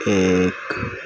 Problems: constant background noise, low volume